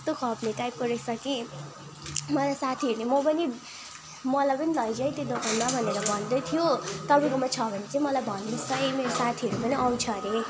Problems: constant background noise